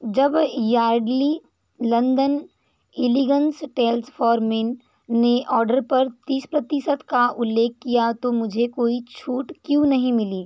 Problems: none marked